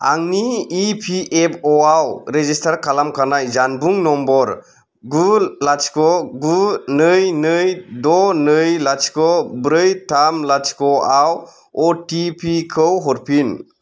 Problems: none marked